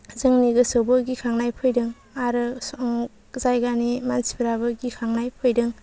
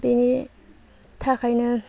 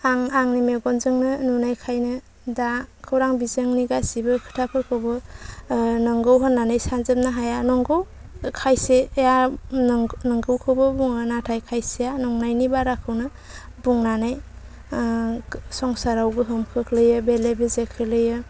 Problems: none marked